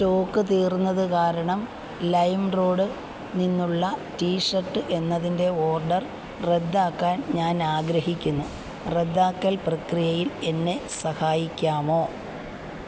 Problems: none marked